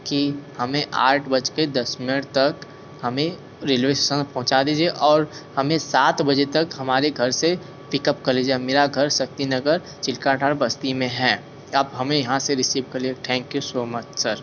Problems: constant background noise